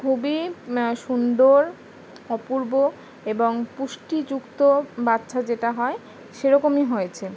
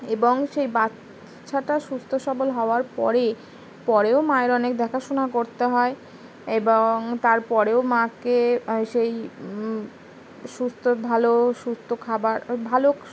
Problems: constant background noise